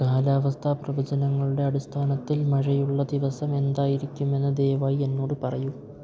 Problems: low volume